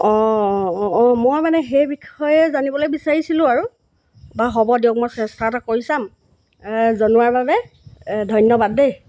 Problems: background sounds at intervals